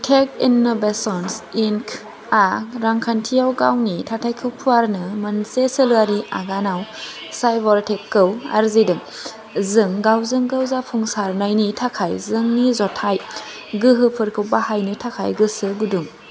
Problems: none marked